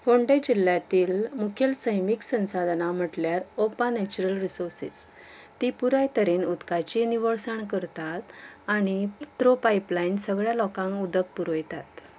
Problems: background conversations at intervals